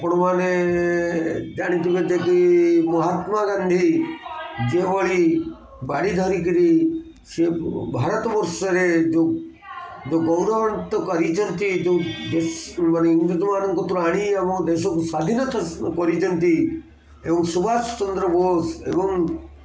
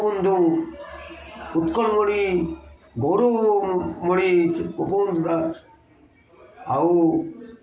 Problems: constant background noise, continuous background conversations